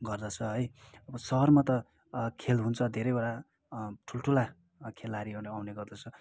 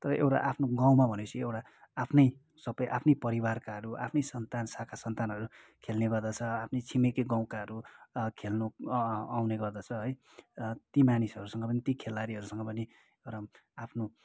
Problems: background sounds at intervals